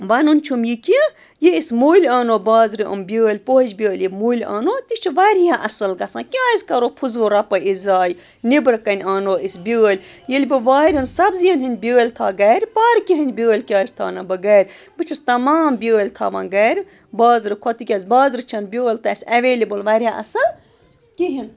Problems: constant background noise, background conversations at intervals